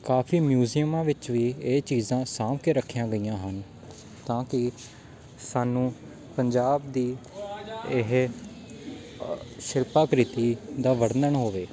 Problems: constant background noise, background conversations at intervals